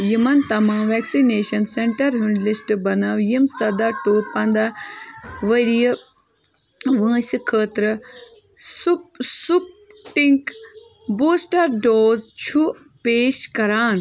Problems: constant background noise